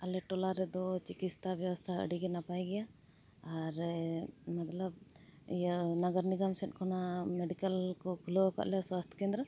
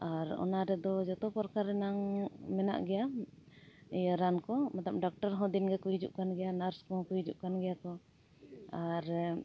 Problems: none marked